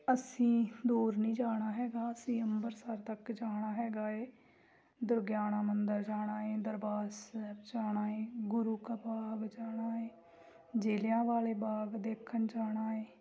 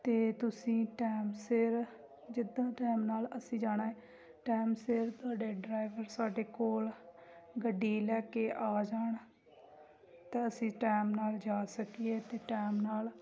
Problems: background sounds at intervals, background conversations at intervals